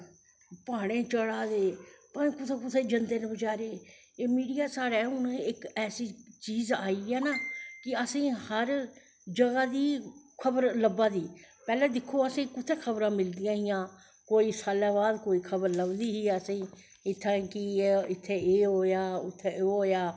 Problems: none marked